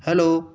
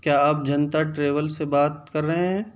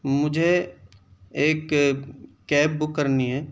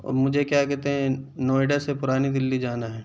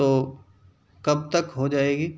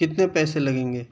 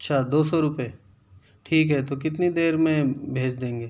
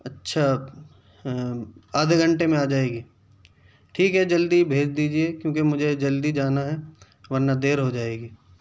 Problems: none marked